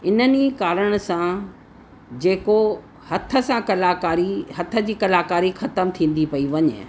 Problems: constant background noise